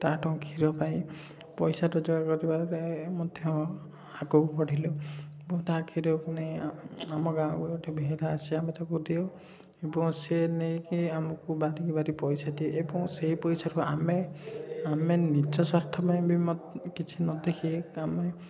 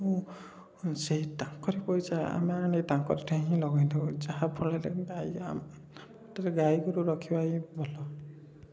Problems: none marked